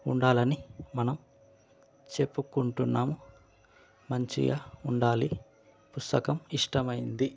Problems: constant background noise